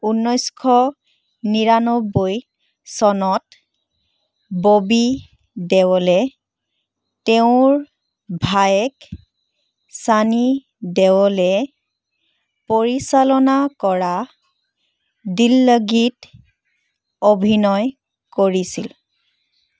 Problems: none marked